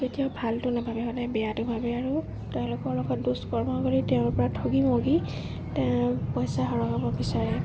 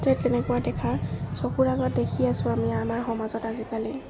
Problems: constant background noise